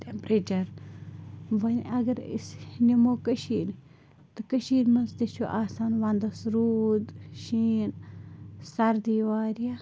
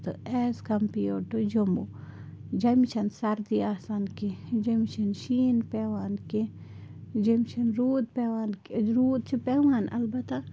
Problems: constant background noise